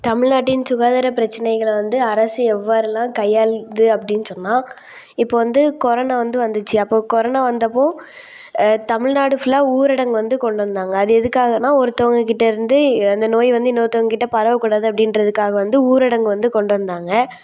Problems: none marked